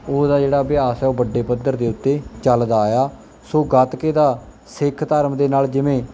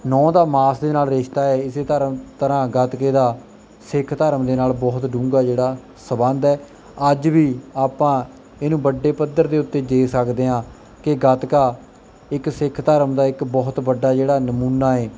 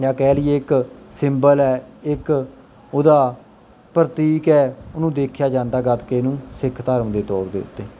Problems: background sounds at intervals